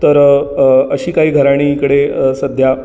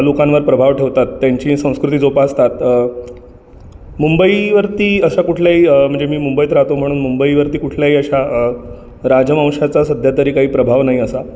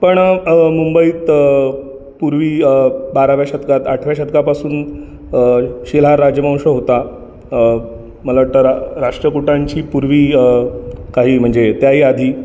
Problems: constant background noise, continuous background conversations